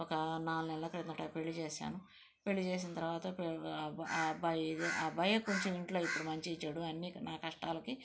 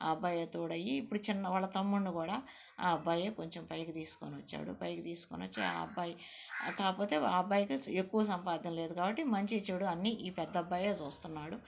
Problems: background sounds at intervals